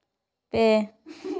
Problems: background sounds at intervals